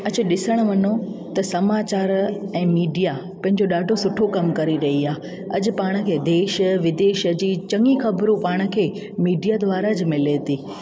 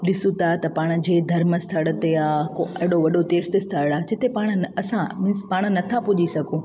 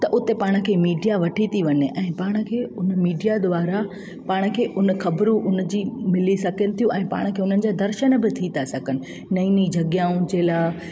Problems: constant background noise, echo